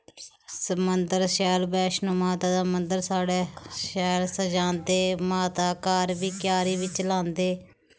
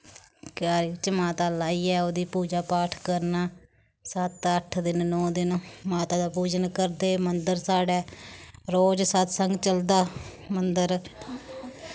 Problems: none marked